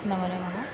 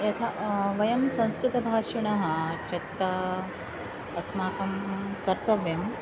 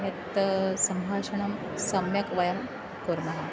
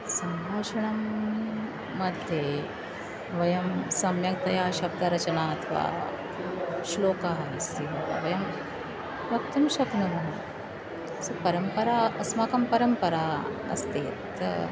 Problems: constant background noise